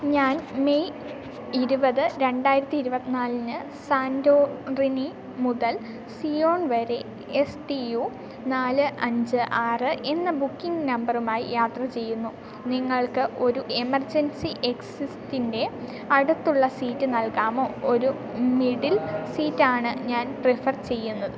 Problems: continuous background conversations, low volume